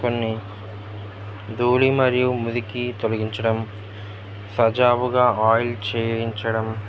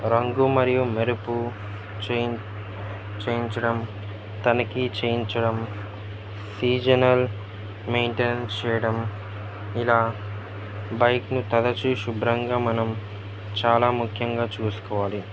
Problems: constant background noise, background conversations at intervals